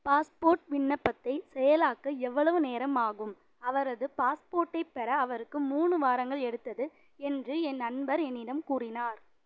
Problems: none marked